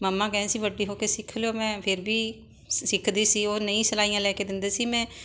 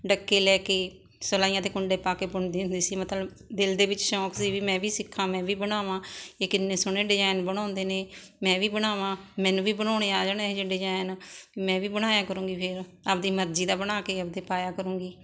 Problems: constant background noise